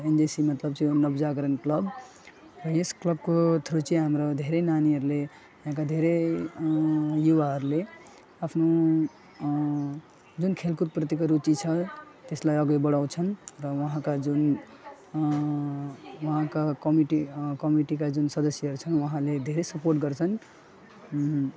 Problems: constant background noise, background conversations at intervals, low volume